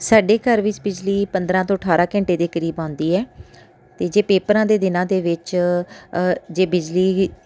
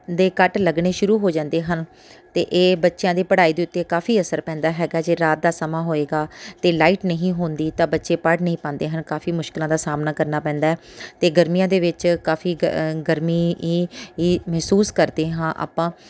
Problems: none marked